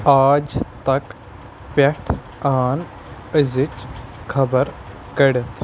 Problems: constant background noise